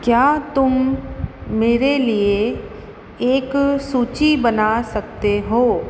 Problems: constant background noise, echo